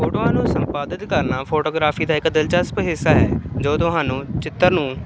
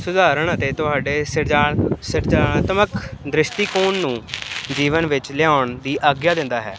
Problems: constant background noise